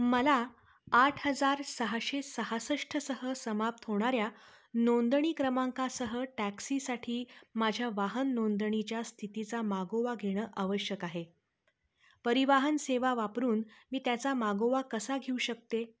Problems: none marked